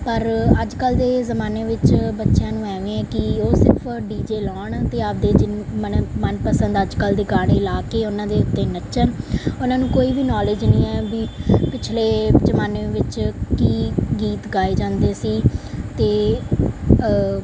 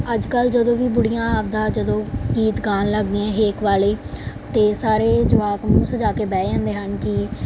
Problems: background sounds at intervals